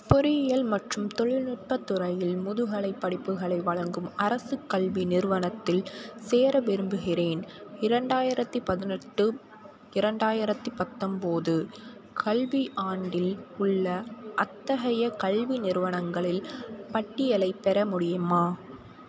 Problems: constant background noise